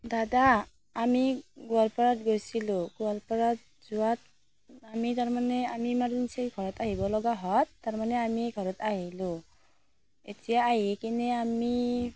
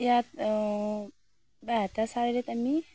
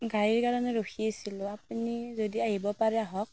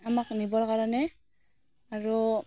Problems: constant background noise